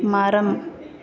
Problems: background conversations at intervals